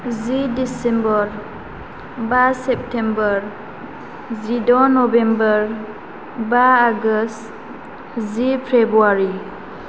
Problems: constant background noise